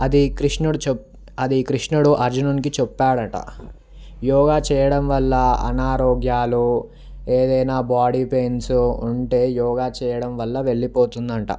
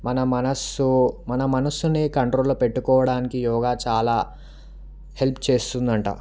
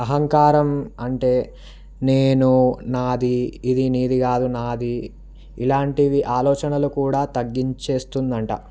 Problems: background sounds at intervals